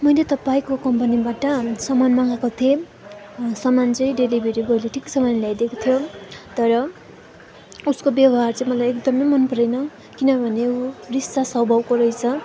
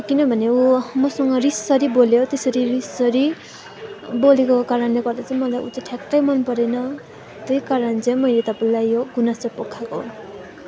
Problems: continuous background conversations